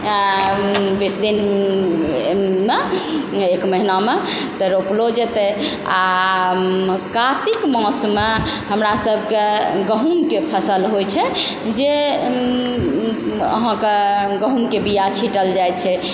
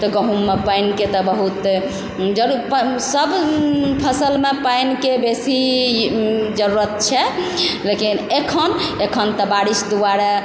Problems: constant background noise